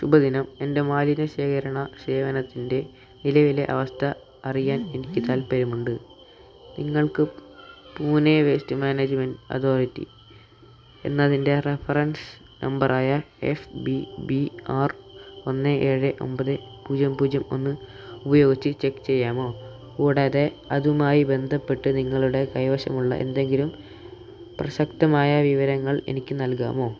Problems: constant background noise, low volume